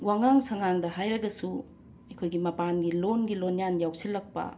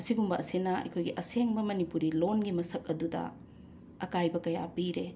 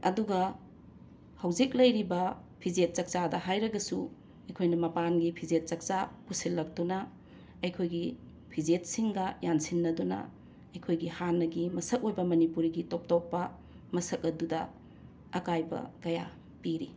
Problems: constant background noise